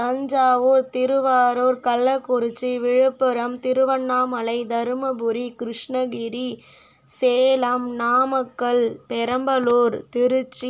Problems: background sounds at intervals